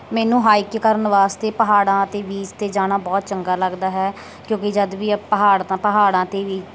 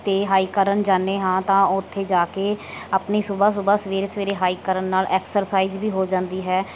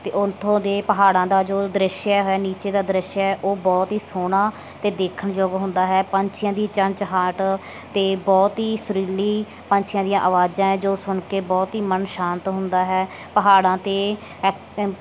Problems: none marked